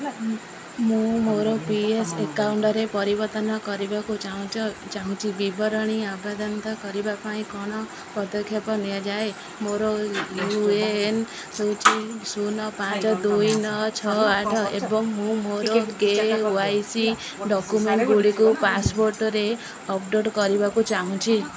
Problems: constant background noise, continuous background conversations